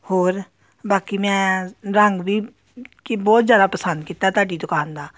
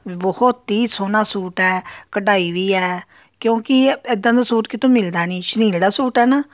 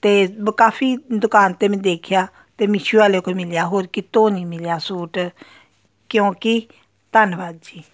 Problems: background sounds at intervals